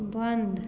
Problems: none marked